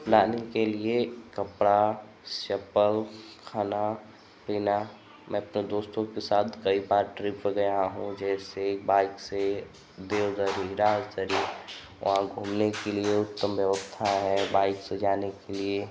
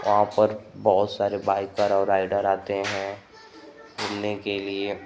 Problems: constant background noise